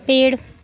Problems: background sounds at intervals